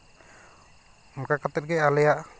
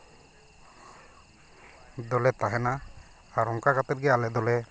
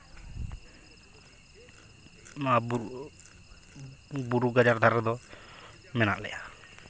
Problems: none marked